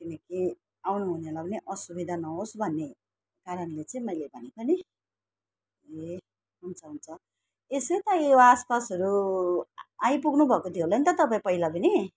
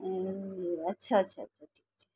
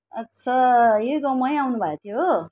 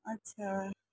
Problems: none marked